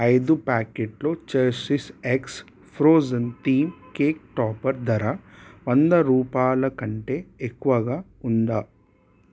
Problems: constant background noise